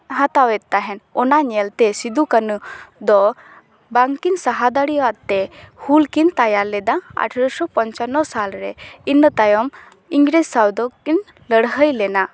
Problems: none marked